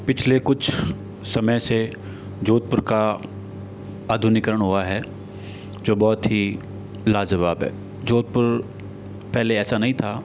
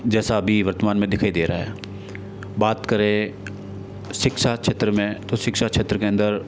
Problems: none marked